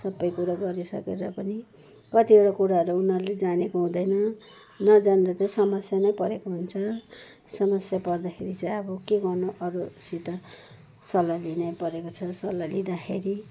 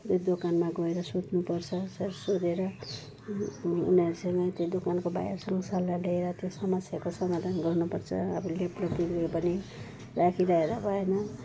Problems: background sounds at intervals